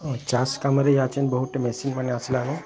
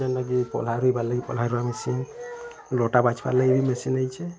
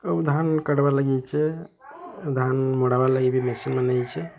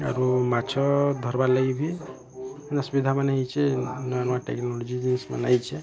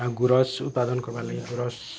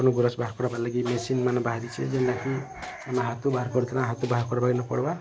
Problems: constant background noise, continuous background conversations